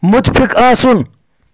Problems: constant background noise